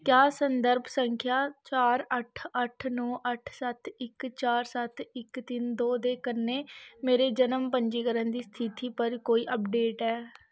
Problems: none marked